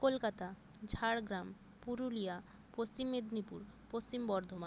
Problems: background sounds at intervals